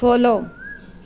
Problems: background sounds at intervals